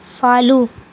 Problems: constant background noise